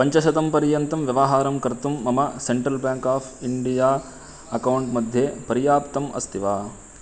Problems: constant background noise